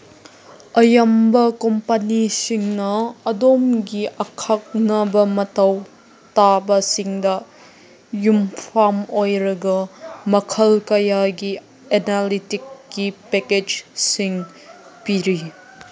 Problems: background sounds at intervals, background conversations at intervals